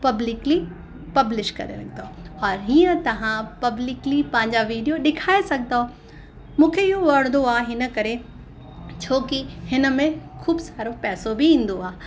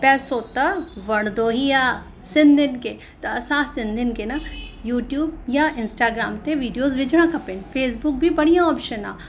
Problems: constant background noise, echo